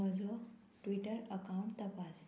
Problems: none marked